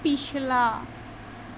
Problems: constant background noise